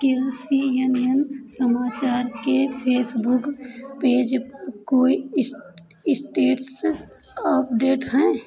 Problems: continuous background conversations